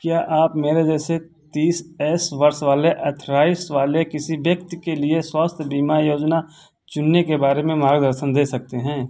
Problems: none marked